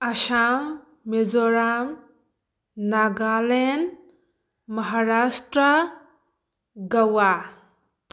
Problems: none marked